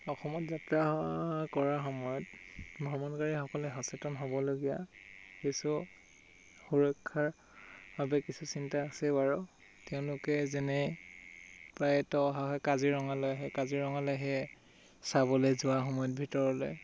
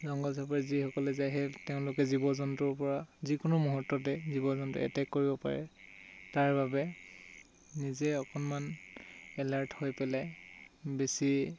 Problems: background sounds at intervals